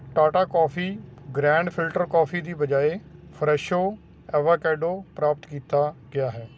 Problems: none marked